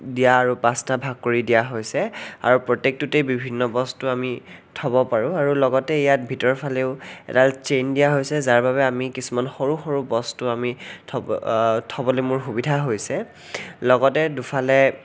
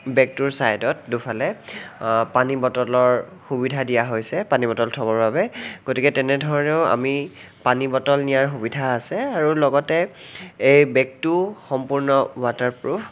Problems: none marked